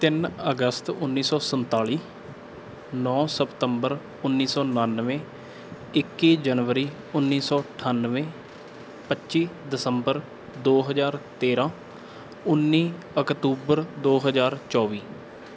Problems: background sounds at intervals